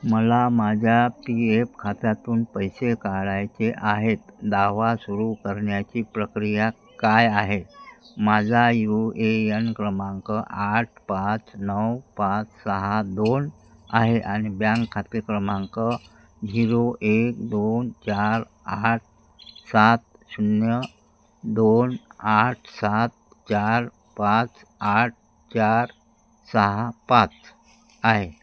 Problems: background sounds at intervals